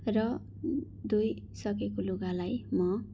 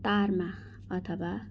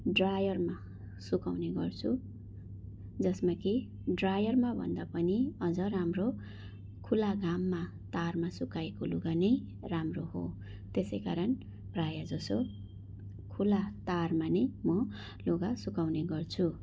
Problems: background sounds at intervals